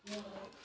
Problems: background sounds at intervals